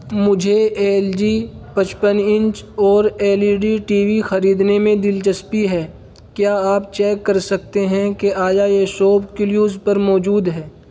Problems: constant background noise